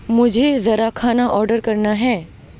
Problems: constant background noise